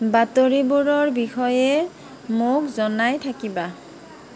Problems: constant background noise